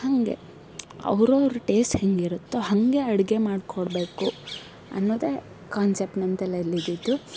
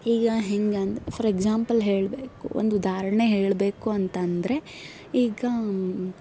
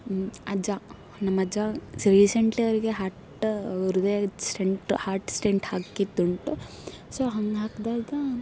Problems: background sounds at intervals